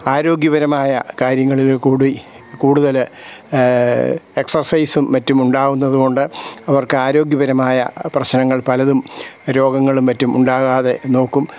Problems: none marked